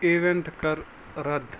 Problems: constant background noise